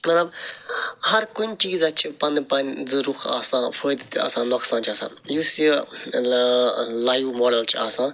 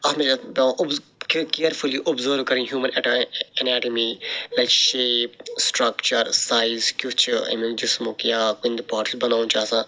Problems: none marked